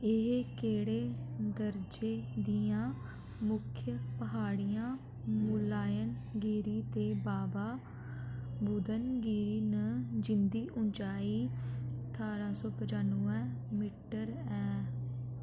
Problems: constant background noise